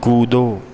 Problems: continuous background conversations